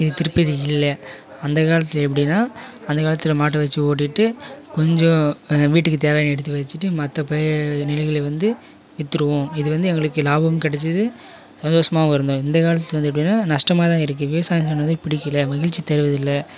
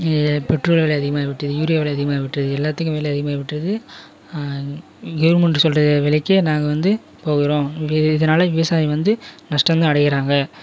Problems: background conversations at intervals